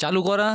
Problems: constant background noise